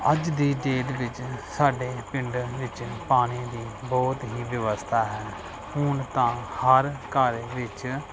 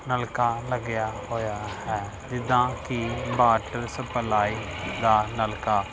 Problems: background sounds at intervals, background conversations at intervals